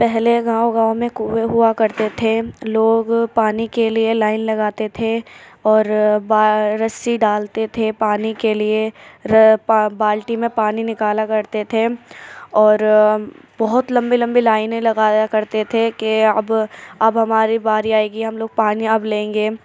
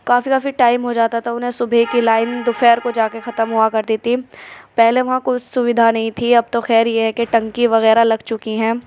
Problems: none marked